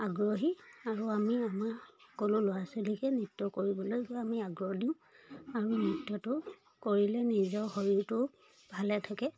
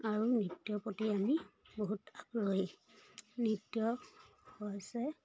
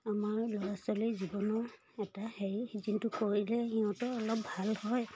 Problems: none marked